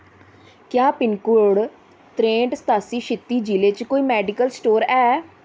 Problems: constant background noise